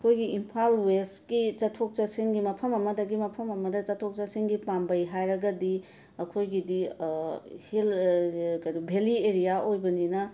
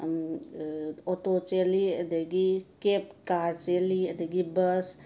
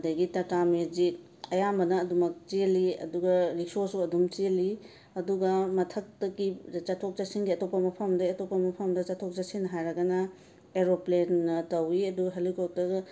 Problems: constant background noise